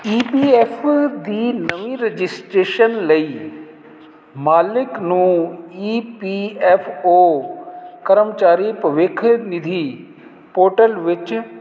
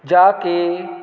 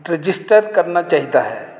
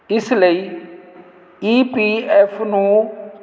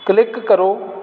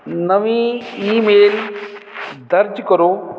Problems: constant background noise